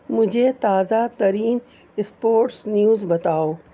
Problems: constant background noise